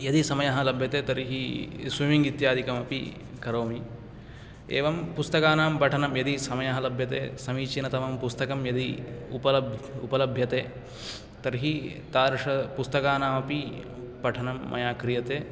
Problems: none marked